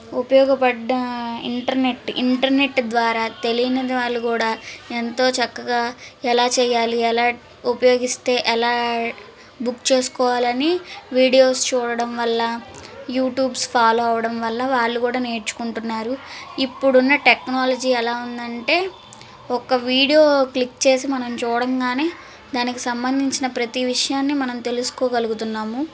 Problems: constant background noise